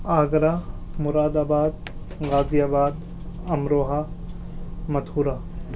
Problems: constant background noise